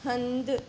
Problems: constant background noise